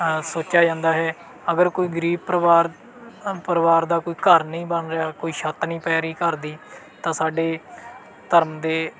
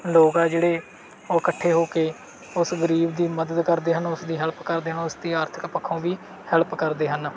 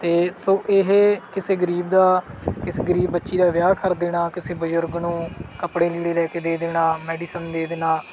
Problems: none marked